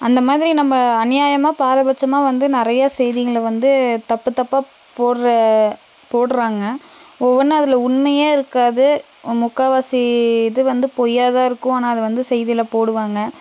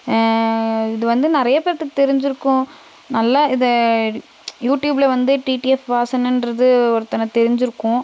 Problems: constant background noise